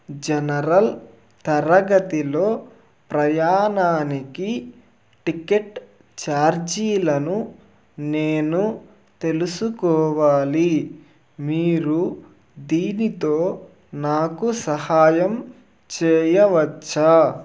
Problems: none marked